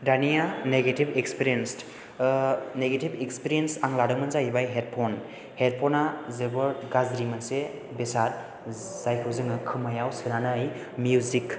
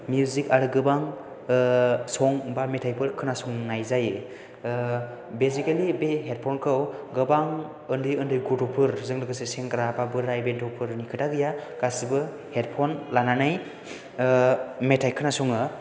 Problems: background sounds at intervals